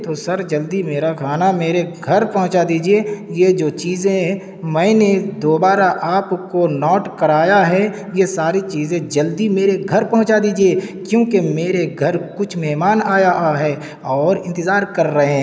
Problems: constant background noise